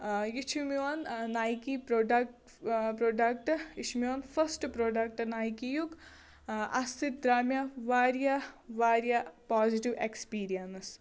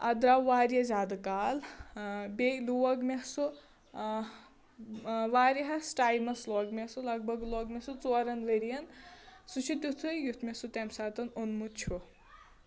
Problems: none marked